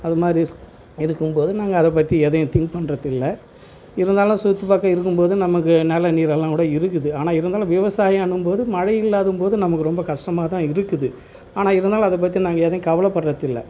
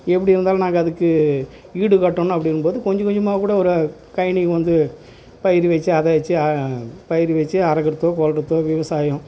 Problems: constant background noise